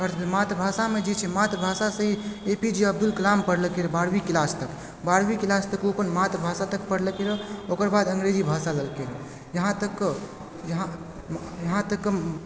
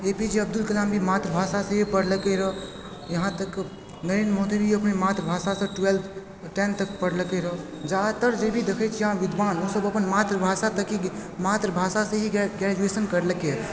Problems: background sounds at intervals, background conversations at intervals